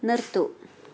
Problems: background sounds at intervals